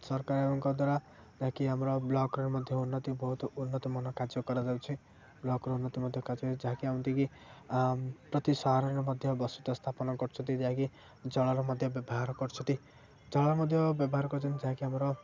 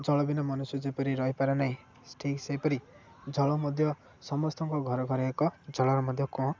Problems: low volume